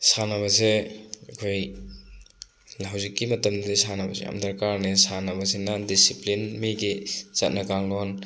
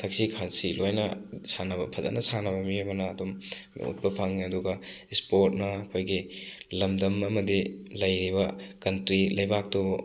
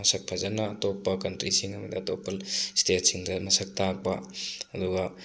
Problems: constant background noise